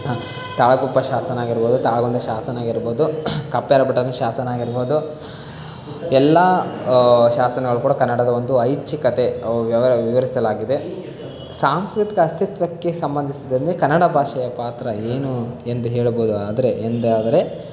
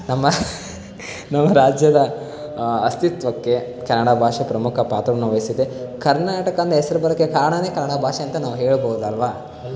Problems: constant background noise